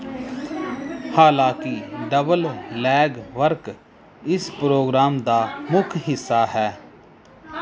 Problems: background sounds at intervals, background conversations at intervals